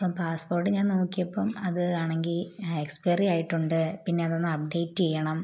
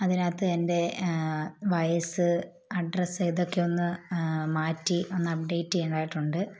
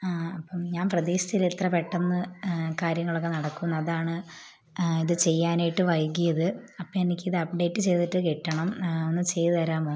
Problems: low volume